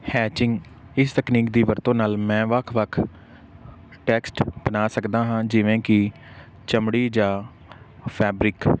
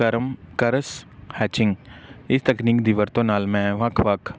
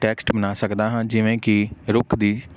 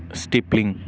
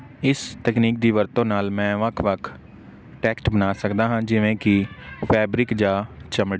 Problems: background sounds at intervals